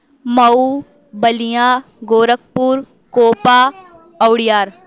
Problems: background sounds at intervals